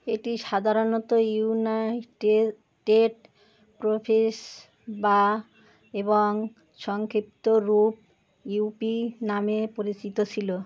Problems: constant background noise